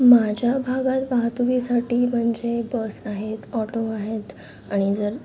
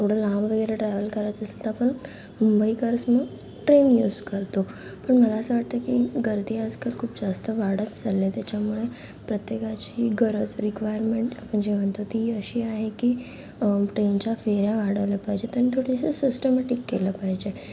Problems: constant background noise, continuous background conversations